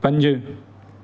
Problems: constant background noise, echo